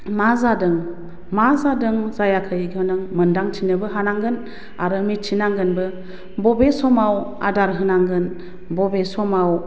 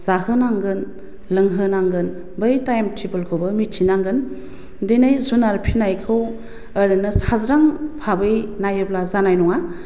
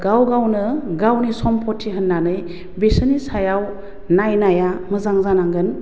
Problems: constant background noise